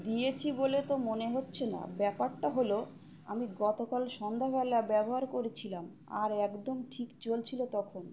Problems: constant background noise, background conversations at intervals